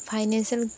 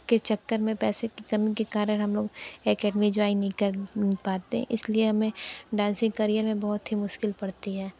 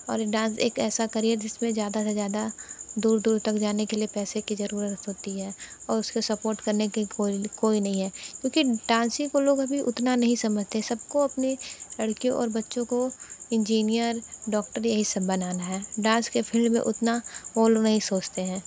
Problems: constant background noise